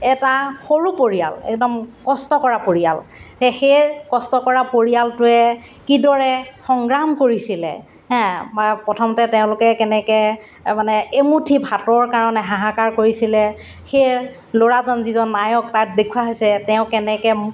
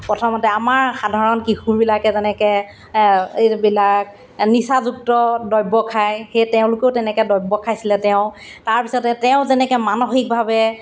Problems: none marked